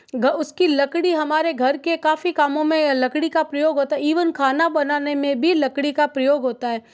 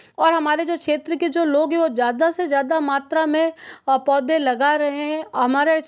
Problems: background sounds at intervals